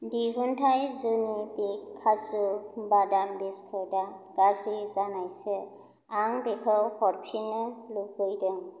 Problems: none marked